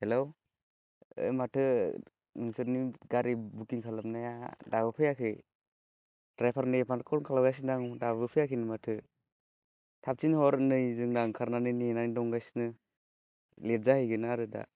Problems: constant background noise